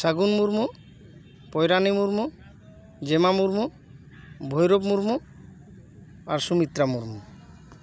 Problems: background conversations at intervals